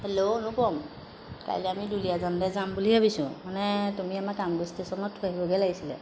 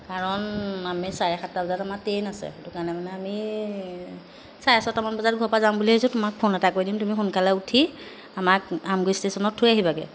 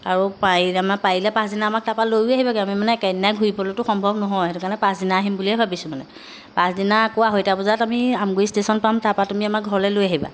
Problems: background sounds at intervals